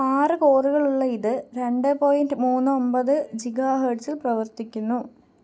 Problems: low volume